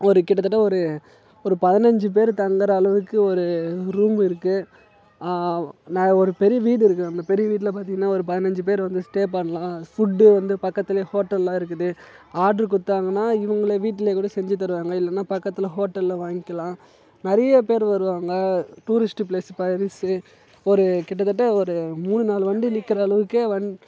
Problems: none marked